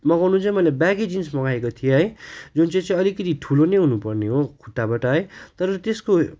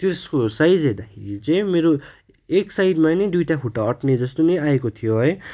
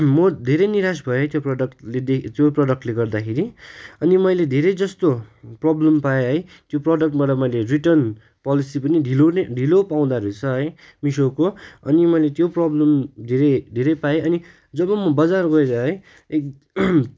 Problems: none marked